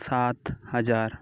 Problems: constant background noise